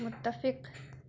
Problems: constant background noise